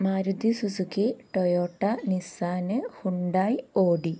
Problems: none marked